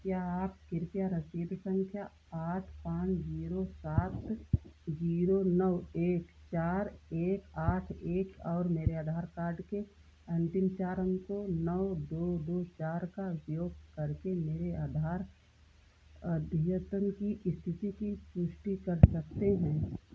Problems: none marked